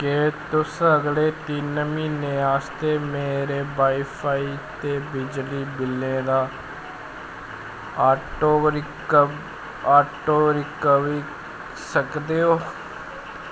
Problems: constant background noise